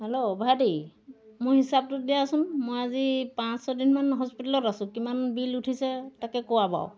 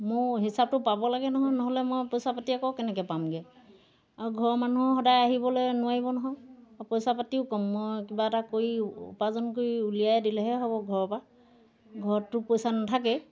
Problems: background sounds at intervals